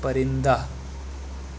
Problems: constant background noise